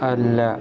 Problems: background conversations at intervals, low volume